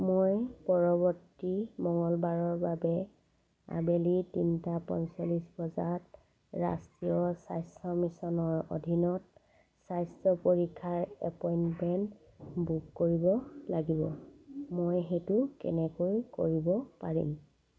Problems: constant background noise, background conversations at intervals